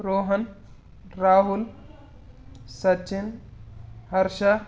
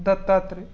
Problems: background sounds at intervals